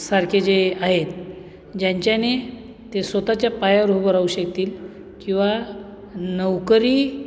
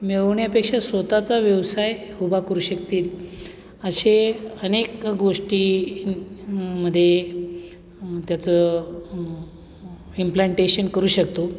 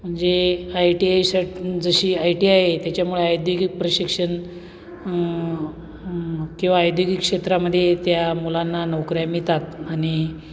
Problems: none marked